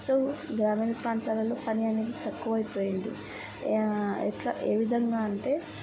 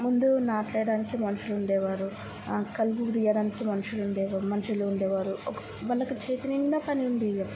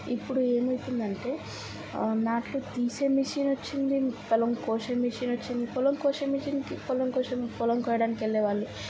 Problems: constant background noise, background conversations at intervals, low volume